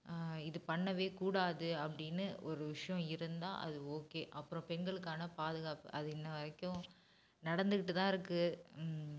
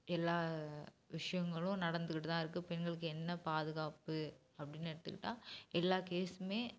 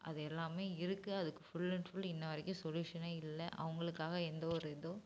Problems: background sounds at intervals